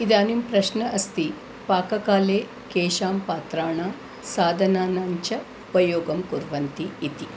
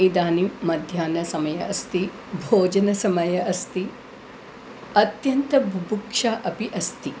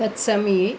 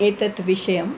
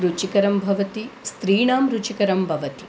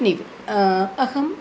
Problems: constant background noise